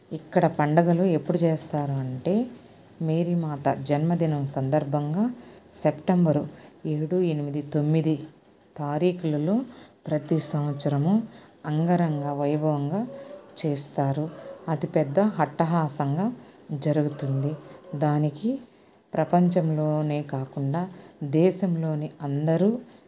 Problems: none marked